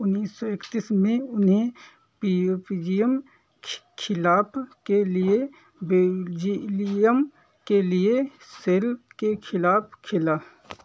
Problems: background sounds at intervals